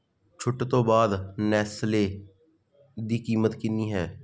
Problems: constant background noise